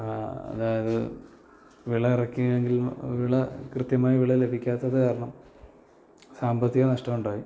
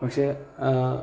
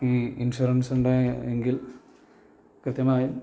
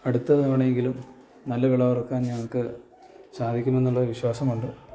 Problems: low volume